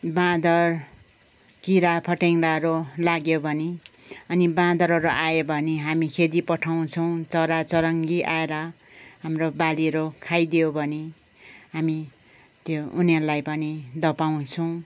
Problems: background sounds at intervals